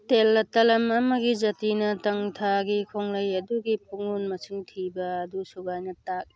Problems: background sounds at intervals, background conversations at intervals